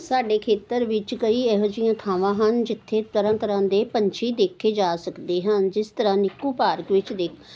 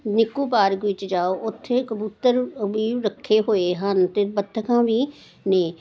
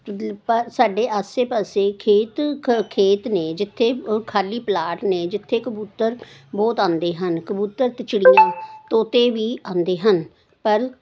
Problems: none marked